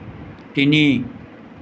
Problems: constant background noise